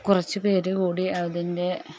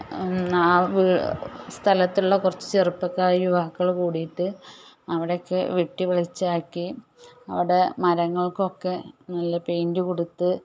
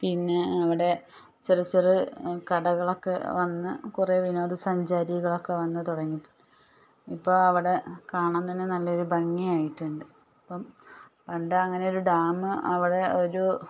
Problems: background sounds at intervals, low volume